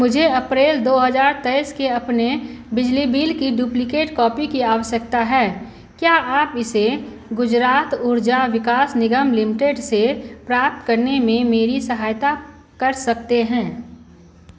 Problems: constant background noise